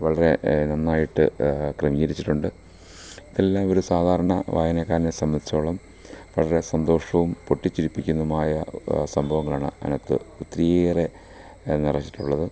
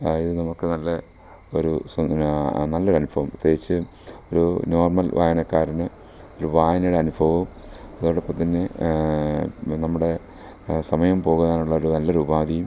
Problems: low volume